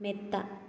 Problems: low volume